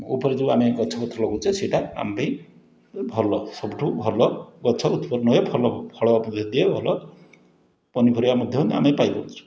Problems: none marked